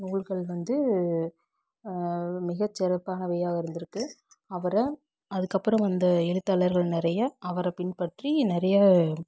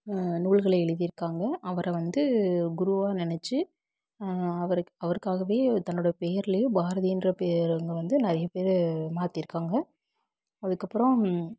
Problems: background sounds at intervals